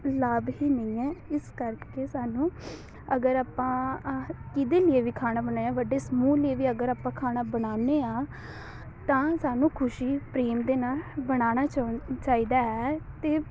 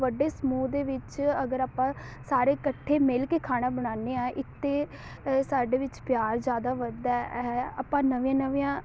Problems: none marked